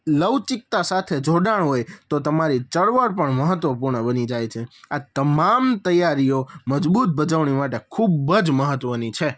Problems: none marked